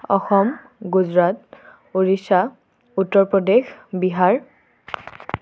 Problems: none marked